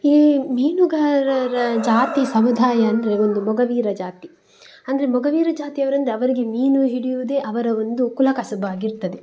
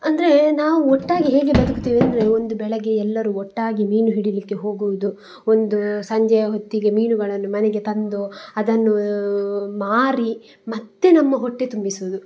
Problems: background sounds at intervals